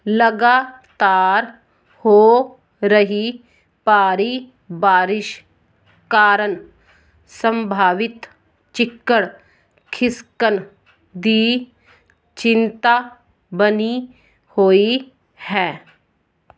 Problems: background sounds at intervals